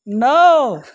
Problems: none marked